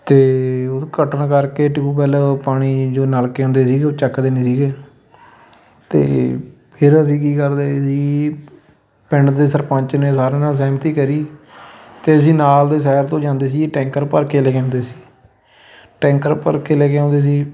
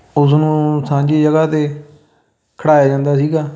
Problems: none marked